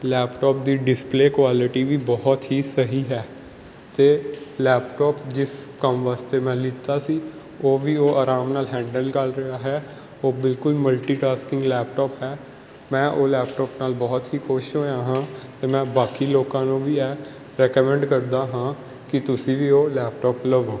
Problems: none marked